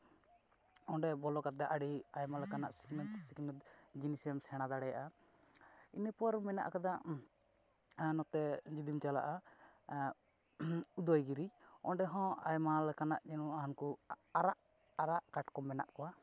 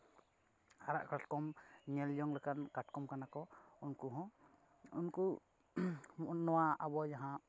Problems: none marked